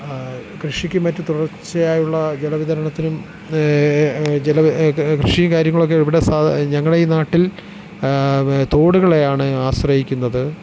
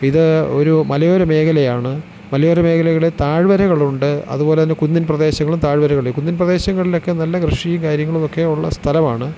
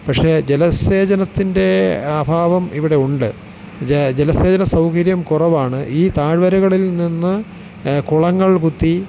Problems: constant background noise, low volume